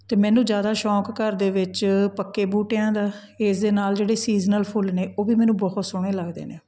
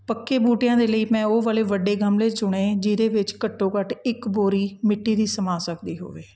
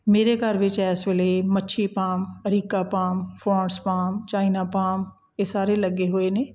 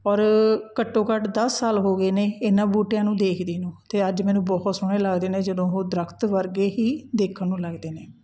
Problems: background sounds at intervals